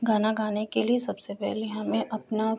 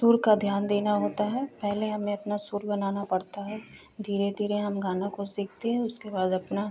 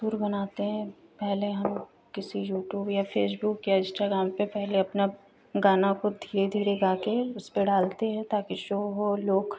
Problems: constant background noise